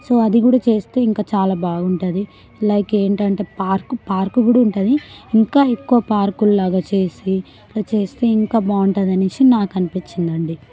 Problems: background conversations at intervals